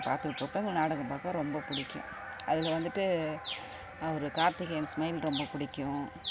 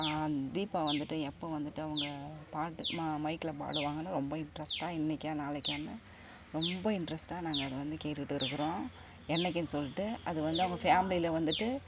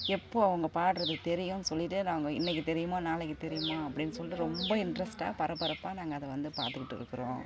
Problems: constant background noise